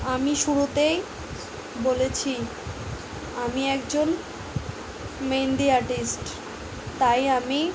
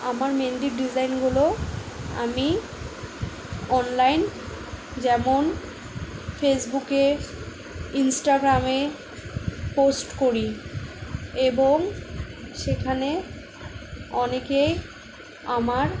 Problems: background sounds at intervals